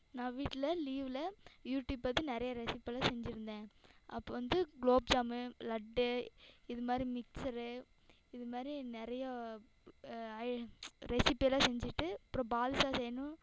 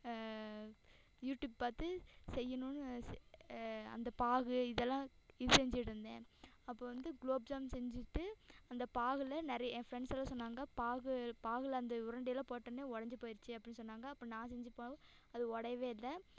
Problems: echo